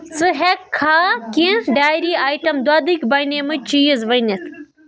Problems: background sounds at intervals, background conversations at intervals